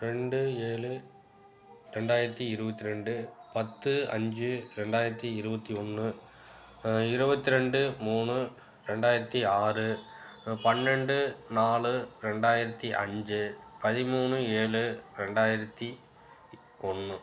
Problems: background sounds at intervals